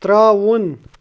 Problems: background sounds at intervals